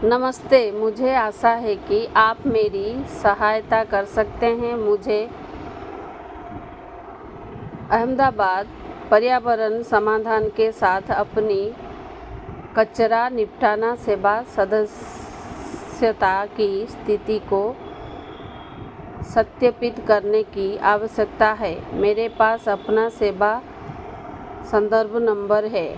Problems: constant background noise